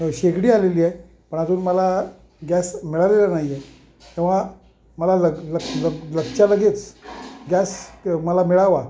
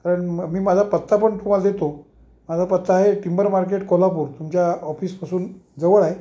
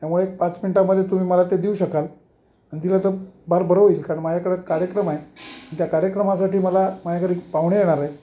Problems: constant background noise